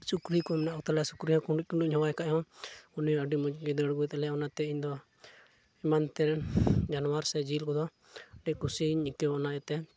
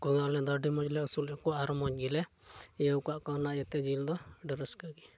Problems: none marked